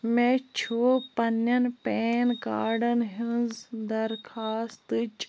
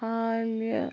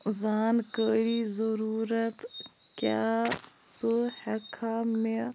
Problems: none marked